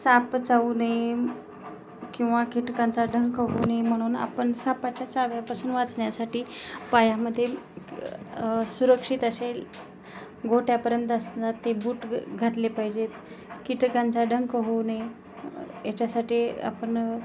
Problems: constant background noise